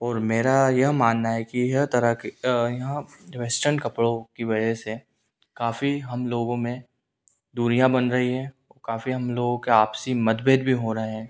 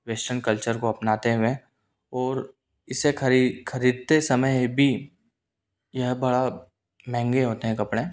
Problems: none marked